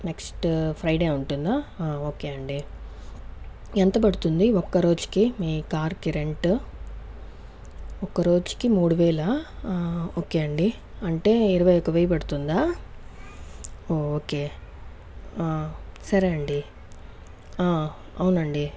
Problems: background conversations at intervals